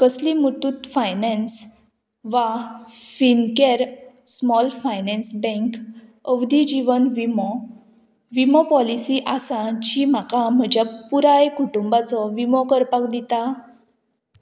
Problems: none marked